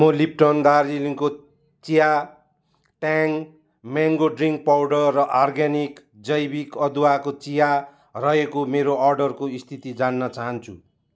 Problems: none marked